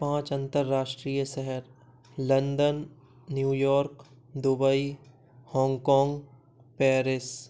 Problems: none marked